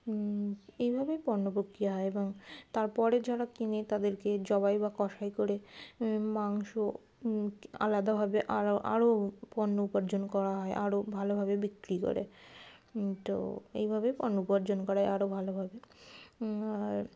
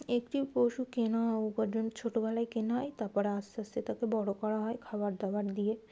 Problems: background sounds at intervals